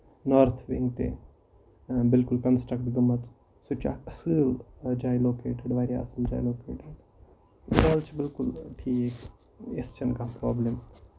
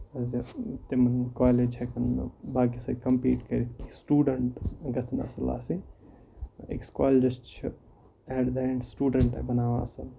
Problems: constant background noise